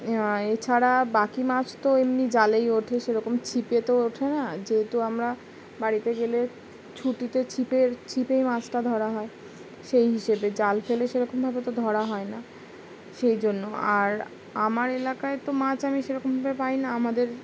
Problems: background sounds at intervals